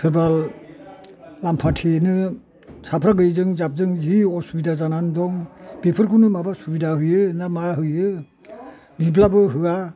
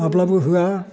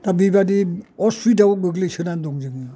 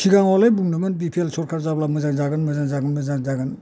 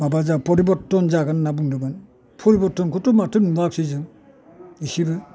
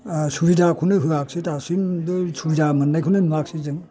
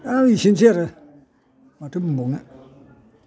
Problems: none marked